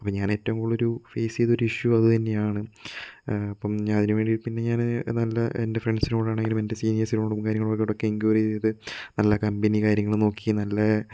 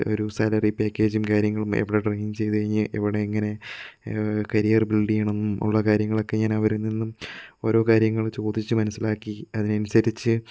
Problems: none marked